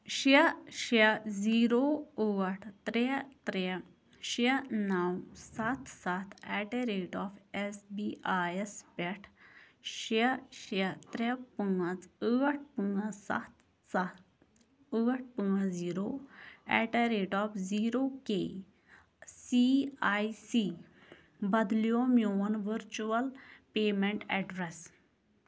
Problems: background sounds at intervals